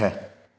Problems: echo